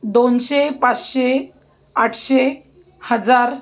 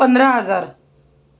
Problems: background sounds at intervals